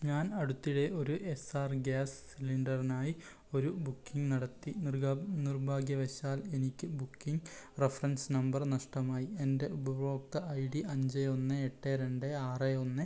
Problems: low volume